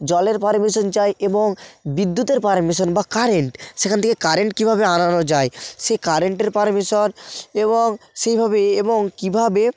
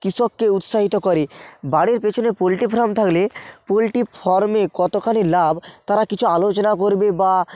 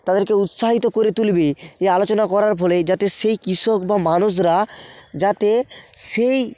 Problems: background sounds at intervals